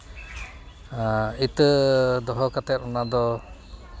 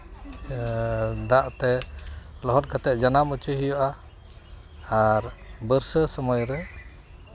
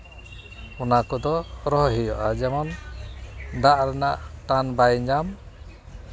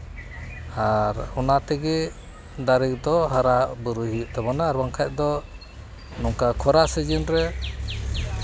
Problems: none marked